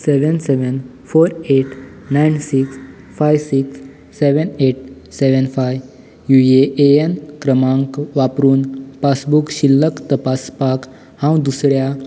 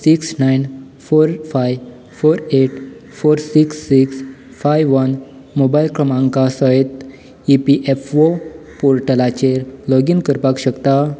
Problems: background sounds at intervals